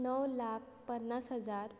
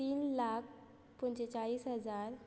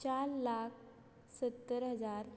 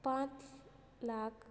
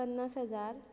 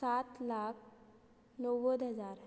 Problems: constant background noise